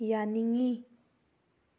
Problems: none marked